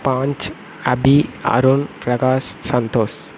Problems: constant background noise